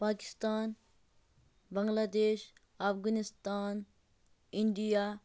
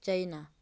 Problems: none marked